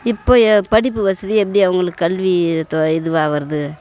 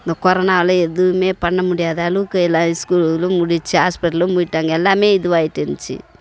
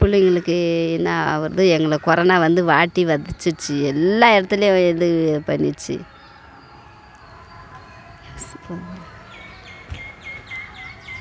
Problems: constant background noise